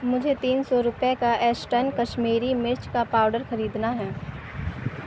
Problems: constant background noise